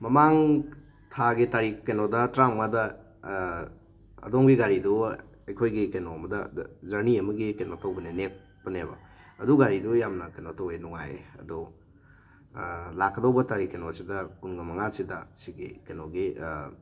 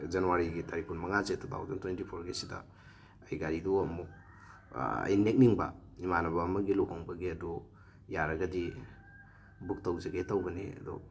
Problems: background sounds at intervals